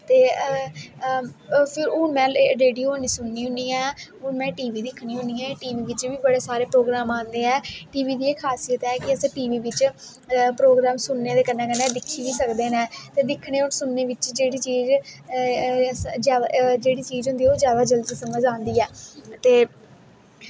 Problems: constant background noise, echo